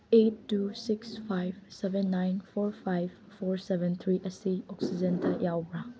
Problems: background sounds at intervals